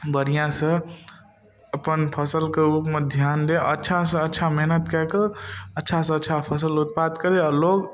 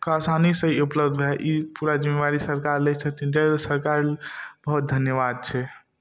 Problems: none marked